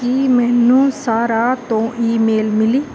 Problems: constant background noise